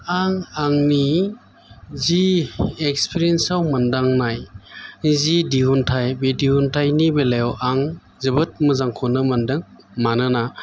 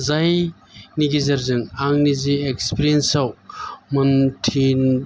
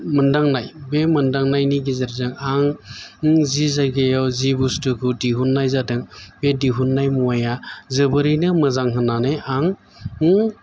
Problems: constant background noise